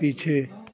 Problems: constant background noise